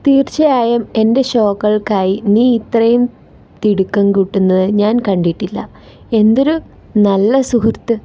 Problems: none marked